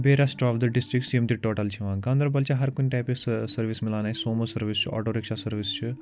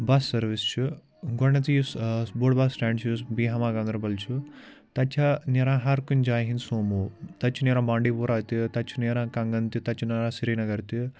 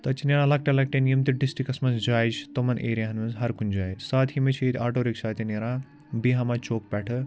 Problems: background conversations at intervals